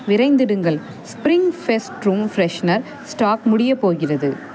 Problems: none marked